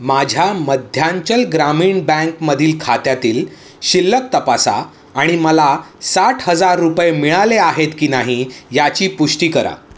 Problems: background sounds at intervals, echo